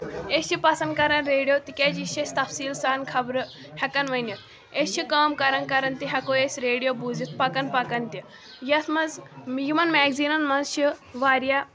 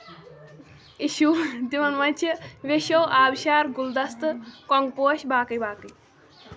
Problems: background sounds at intervals